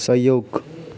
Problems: background sounds at intervals